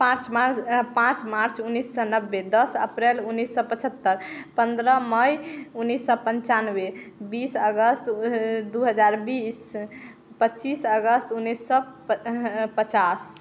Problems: constant background noise, continuous background conversations